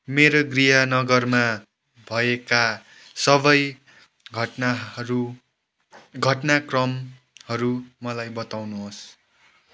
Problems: background sounds at intervals